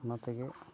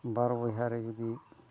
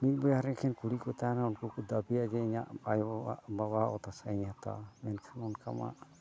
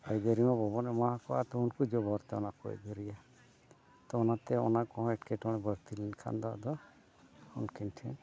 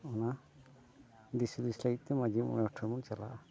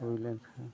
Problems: background sounds at intervals, continuous background conversations, low volume